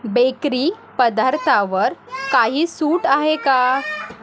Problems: continuous background conversations